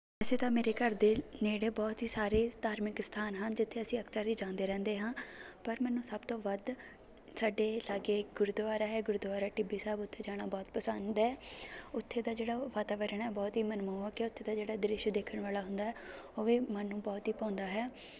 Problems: continuous background conversations